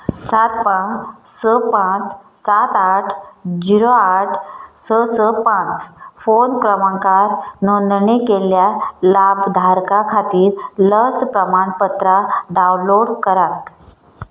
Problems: none marked